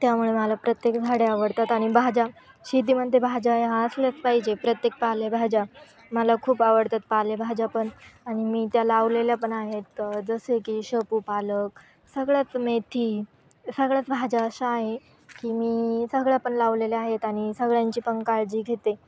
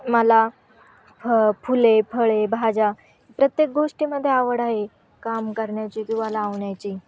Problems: background sounds at intervals